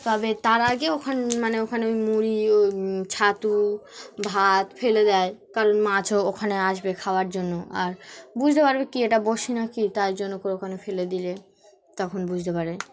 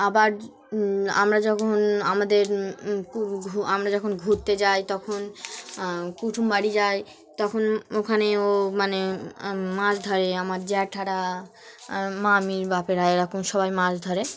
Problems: constant background noise, continuous background conversations